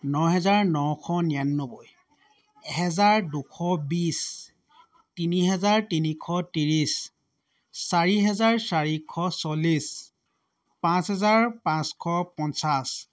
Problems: background sounds at intervals